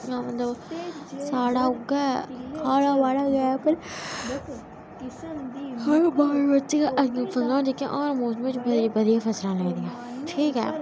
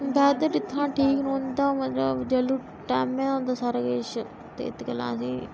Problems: constant background noise, background conversations at intervals